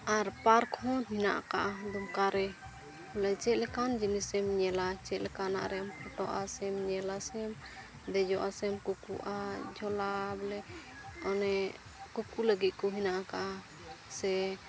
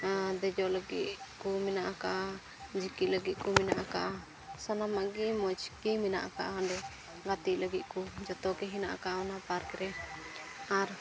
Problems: constant background noise, background conversations at intervals